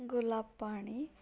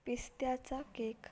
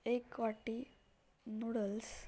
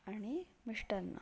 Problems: background sounds at intervals